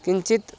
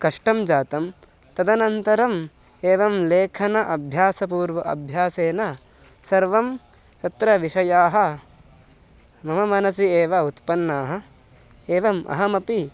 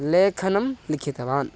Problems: constant background noise